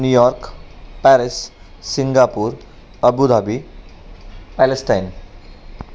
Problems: none marked